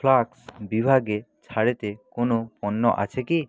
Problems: none marked